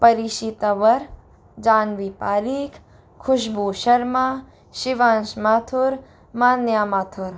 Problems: none marked